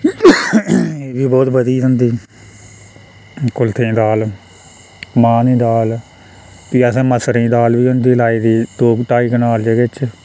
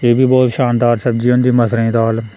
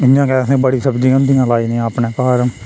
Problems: constant background noise